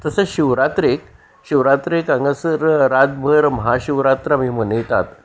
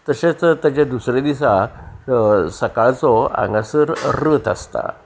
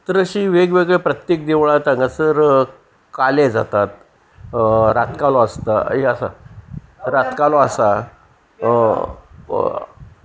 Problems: none marked